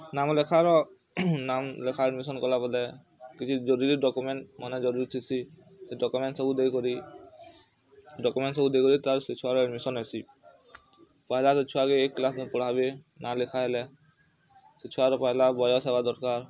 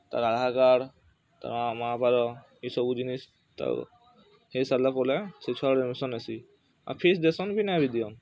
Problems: constant background noise, continuous background conversations